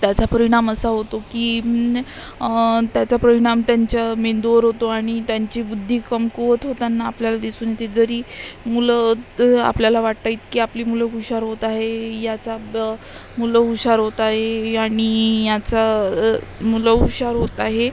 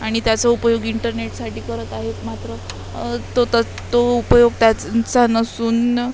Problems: constant background noise, continuous background conversations